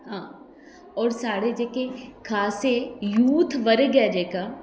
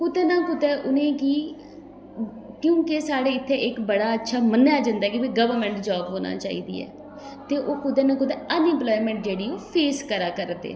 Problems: background sounds at intervals, echo